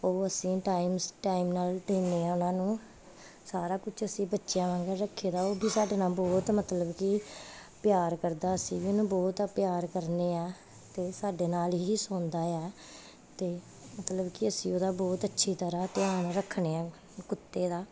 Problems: constant background noise